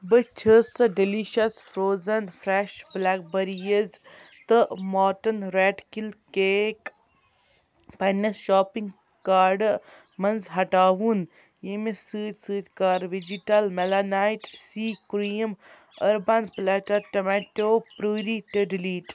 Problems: background sounds at intervals